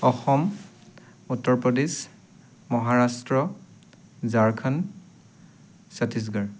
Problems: constant background noise